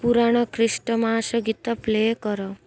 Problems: none marked